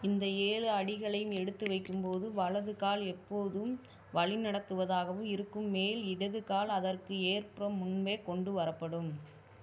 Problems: constant background noise